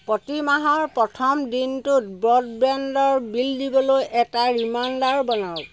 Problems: background sounds at intervals